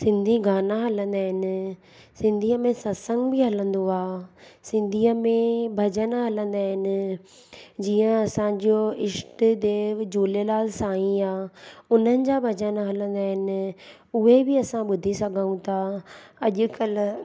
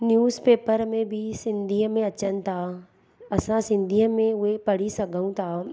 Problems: none marked